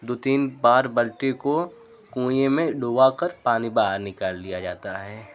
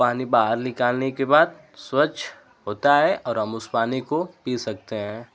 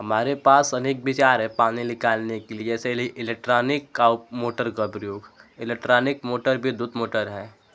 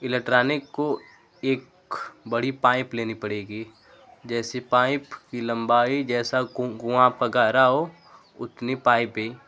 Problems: constant background noise